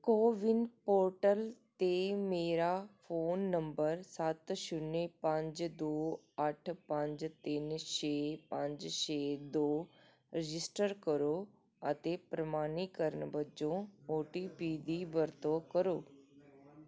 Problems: background conversations at intervals